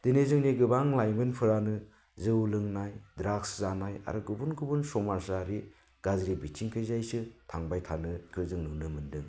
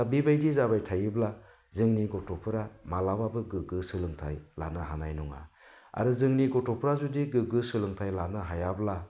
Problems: none marked